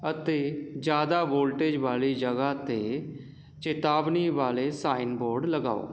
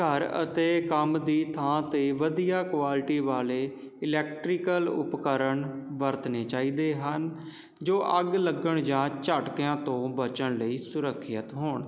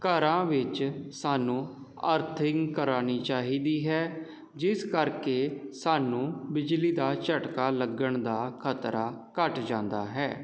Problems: none marked